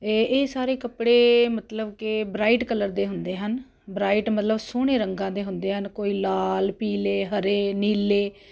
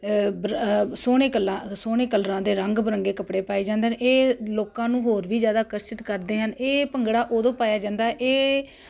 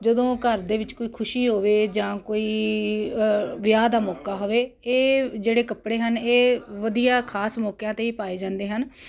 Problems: none marked